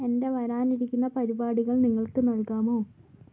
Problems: low volume